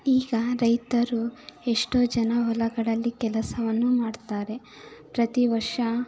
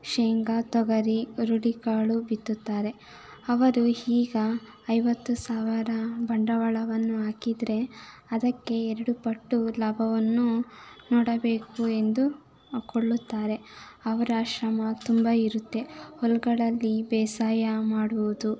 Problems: background sounds at intervals, continuous background conversations